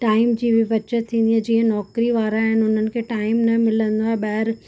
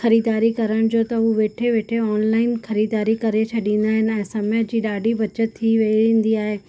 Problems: constant background noise